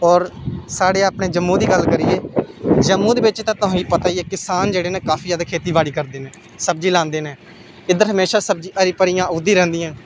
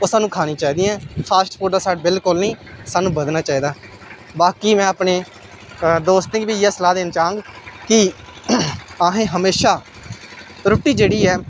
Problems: none marked